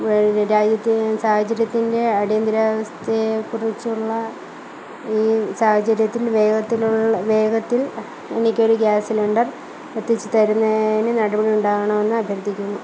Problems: low volume